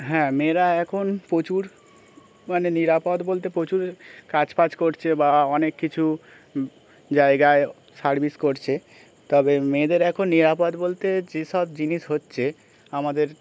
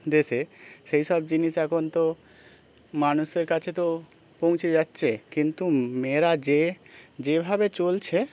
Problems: background sounds at intervals, continuous background conversations